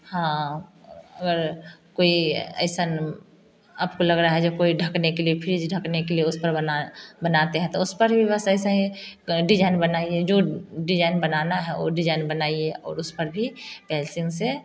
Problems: none marked